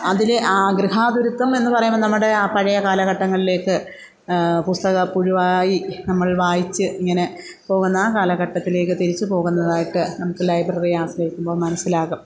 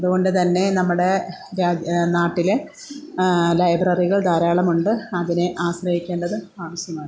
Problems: background sounds at intervals